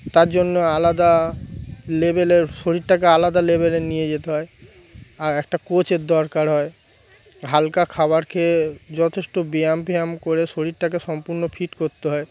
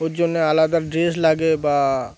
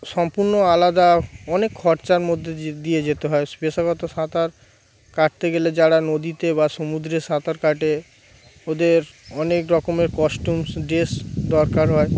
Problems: constant background noise